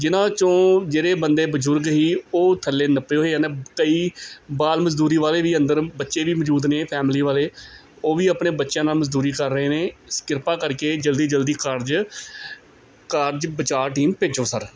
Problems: none marked